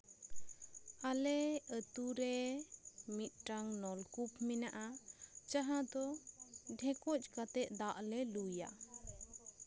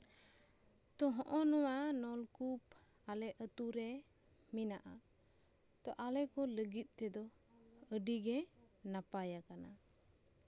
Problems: constant background noise